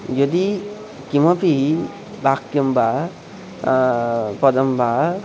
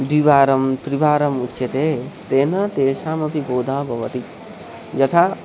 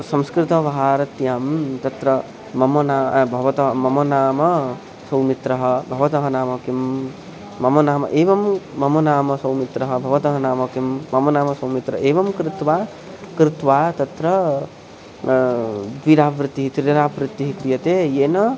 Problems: constant background noise